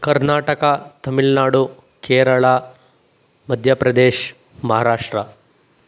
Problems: none marked